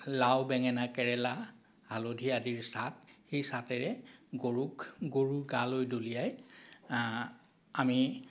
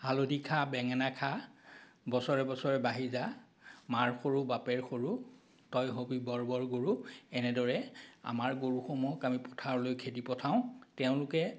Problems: none marked